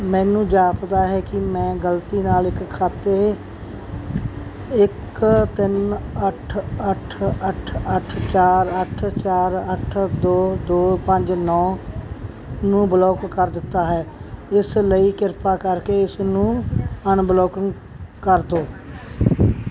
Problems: constant background noise